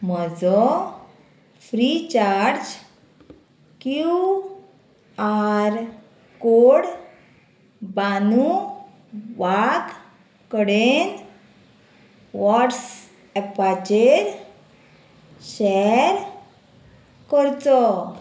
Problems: constant background noise